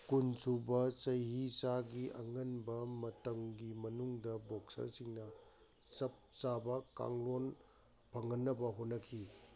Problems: none marked